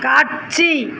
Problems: background sounds at intervals